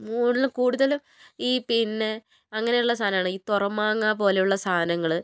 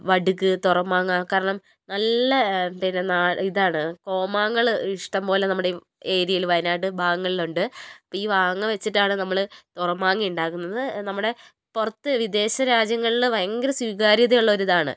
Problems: none marked